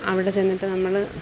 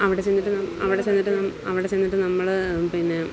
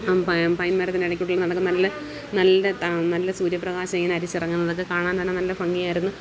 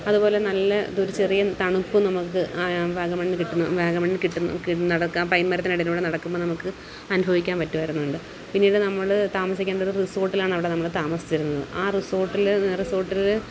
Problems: constant background noise, background conversations at intervals